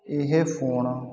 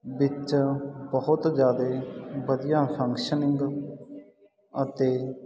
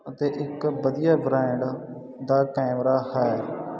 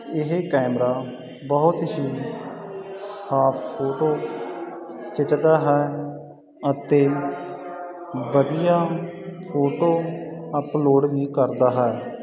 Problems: continuous background conversations